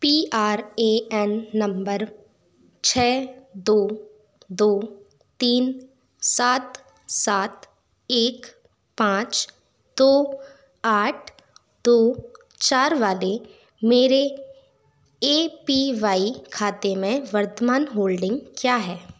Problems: constant background noise